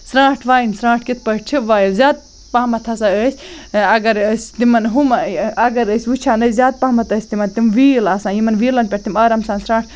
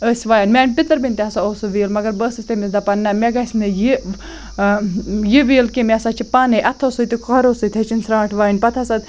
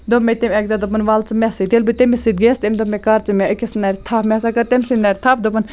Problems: constant background noise